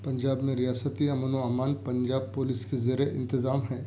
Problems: none marked